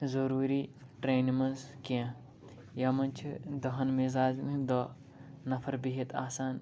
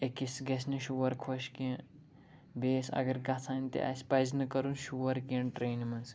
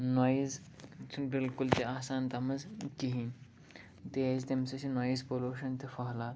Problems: none marked